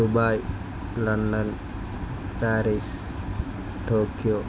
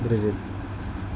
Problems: constant background noise